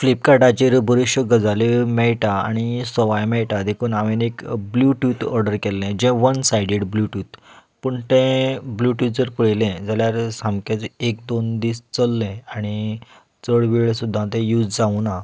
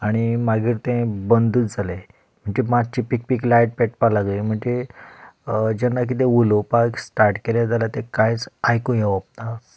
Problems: constant background noise